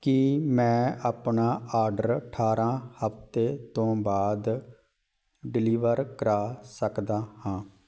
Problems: none marked